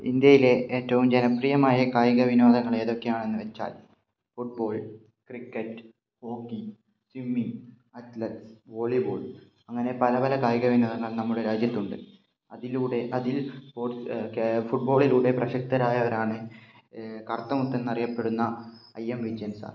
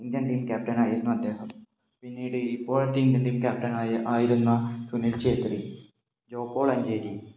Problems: low volume